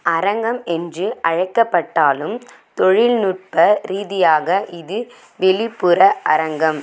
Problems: none marked